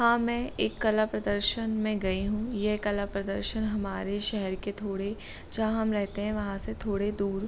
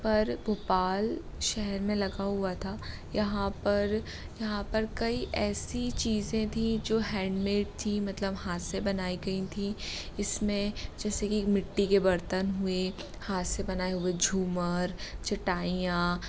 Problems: none marked